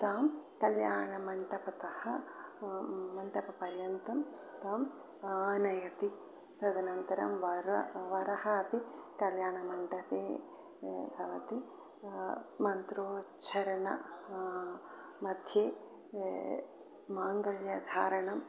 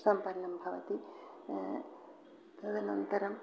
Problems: background sounds at intervals